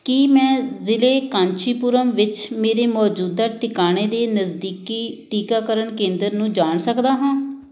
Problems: background sounds at intervals